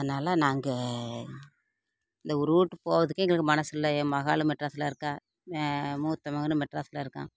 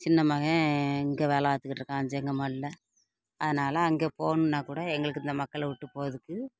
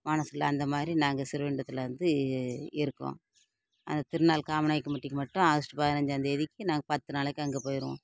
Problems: none marked